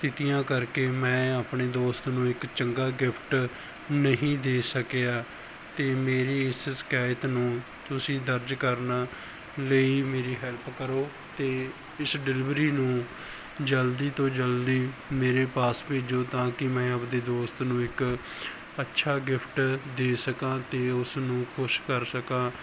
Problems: background sounds at intervals